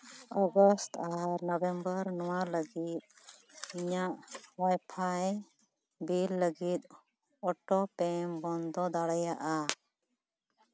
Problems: background sounds at intervals